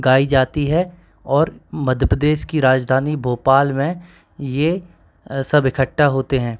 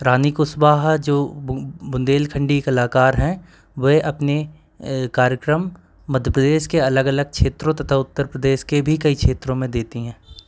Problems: constant background noise